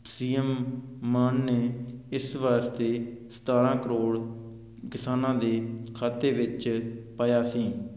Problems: none marked